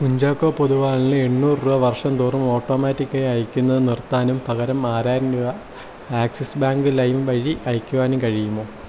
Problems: constant background noise, low volume